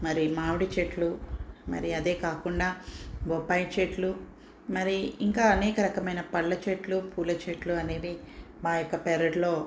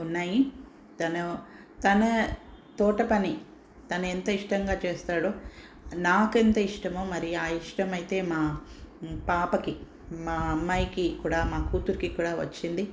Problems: none marked